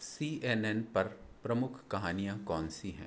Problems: low volume